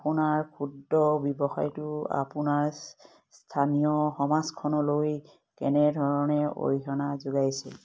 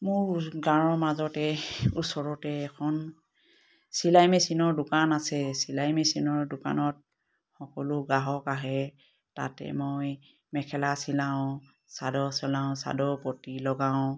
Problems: none marked